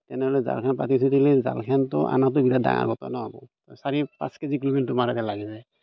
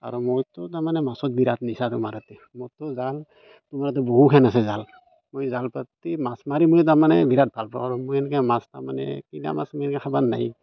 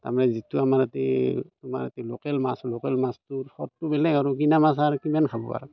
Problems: background sounds at intervals